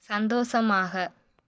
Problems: none marked